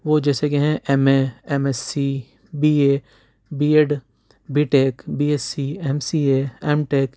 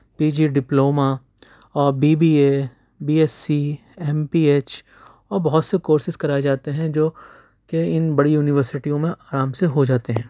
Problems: none marked